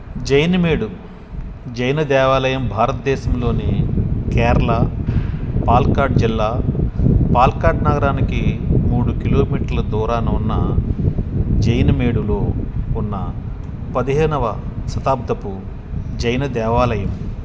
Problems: background sounds at intervals